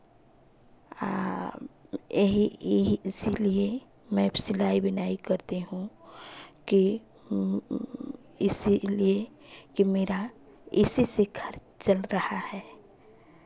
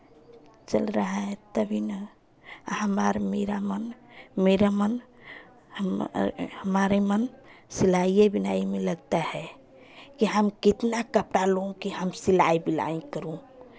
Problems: none marked